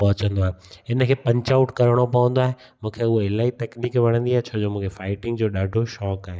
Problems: echo